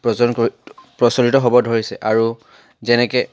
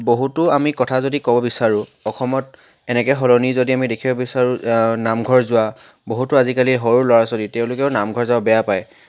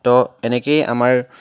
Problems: none marked